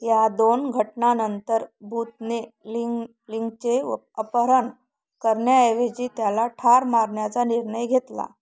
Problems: background sounds at intervals